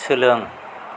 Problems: constant background noise